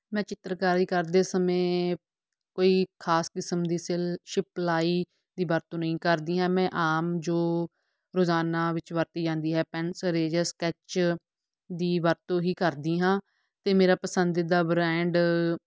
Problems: none marked